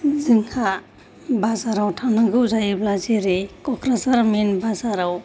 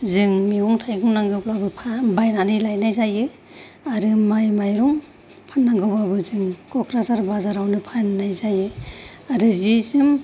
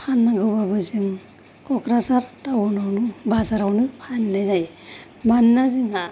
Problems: none marked